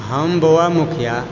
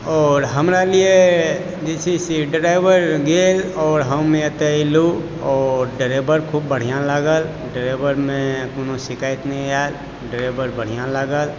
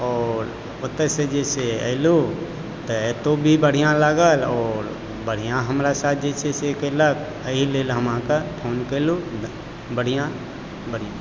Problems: constant background noise